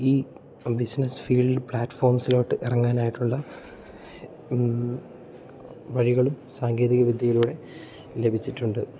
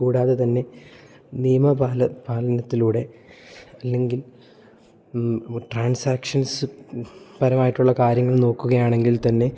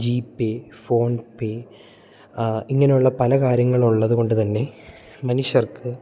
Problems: none marked